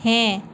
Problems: constant background noise